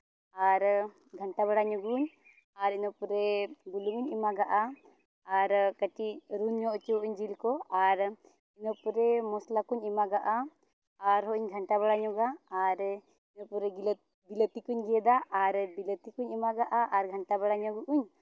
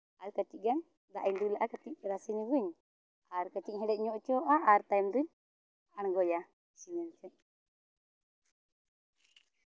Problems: none marked